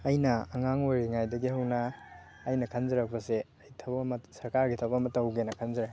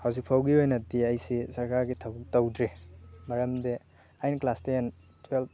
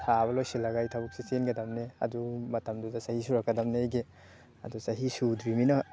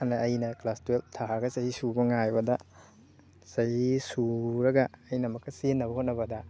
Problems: constant background noise